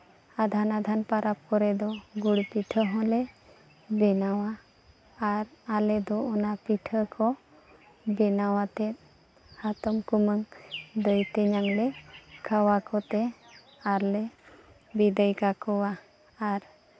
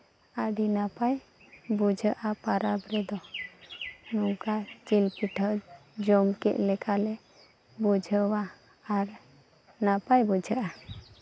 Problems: background sounds at intervals